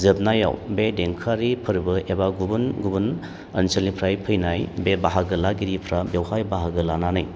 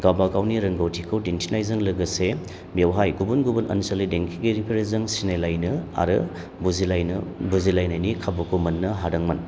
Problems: low volume